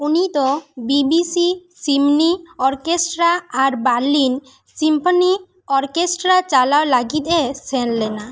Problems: none marked